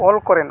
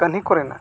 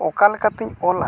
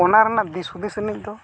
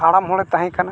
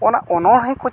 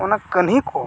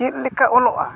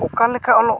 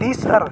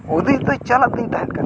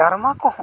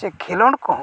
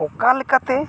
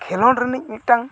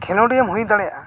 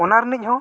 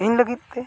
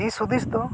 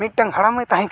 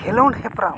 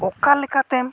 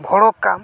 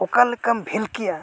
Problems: background sounds at intervals, continuous background conversations